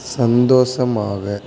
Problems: constant background noise